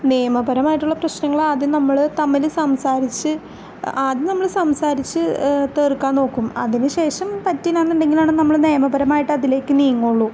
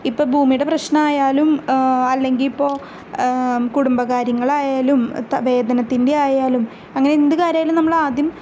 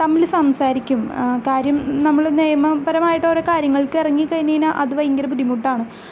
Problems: none marked